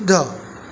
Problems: constant background noise